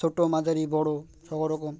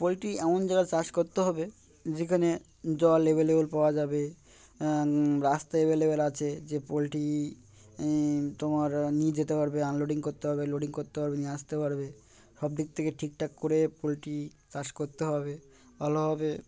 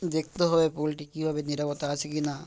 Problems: background sounds at intervals, background conversations at intervals